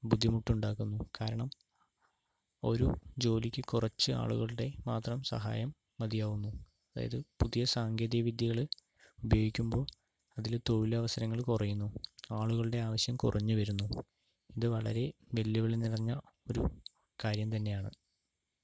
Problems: low volume